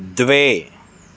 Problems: constant background noise